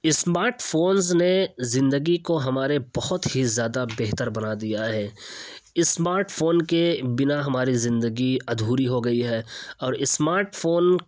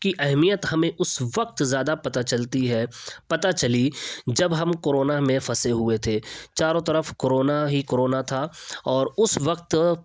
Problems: none marked